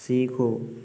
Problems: constant background noise